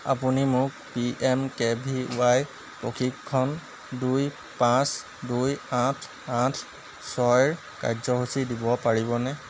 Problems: constant background noise